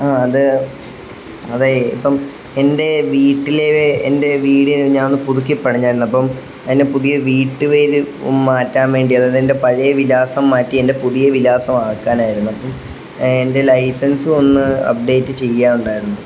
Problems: constant background noise